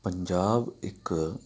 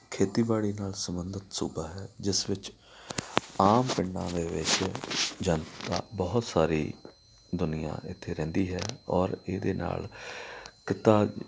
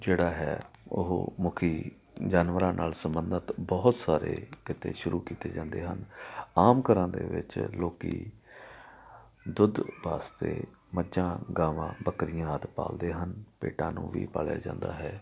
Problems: background sounds at intervals, background conversations at intervals